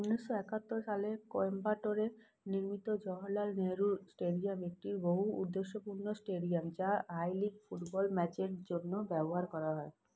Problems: none marked